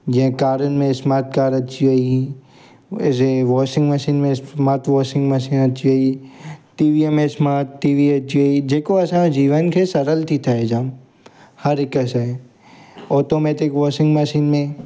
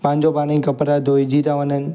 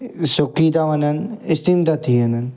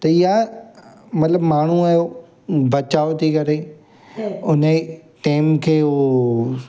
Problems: constant background noise, background conversations at intervals